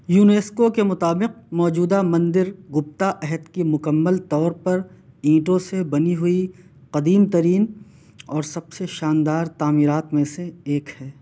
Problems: none marked